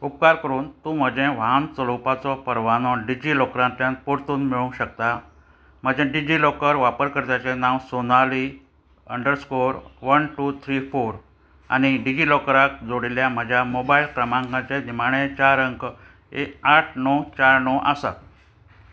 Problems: constant background noise